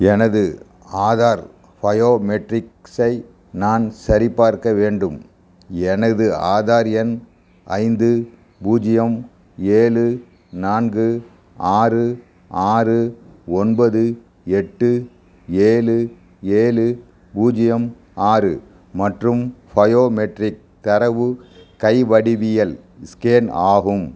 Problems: background sounds at intervals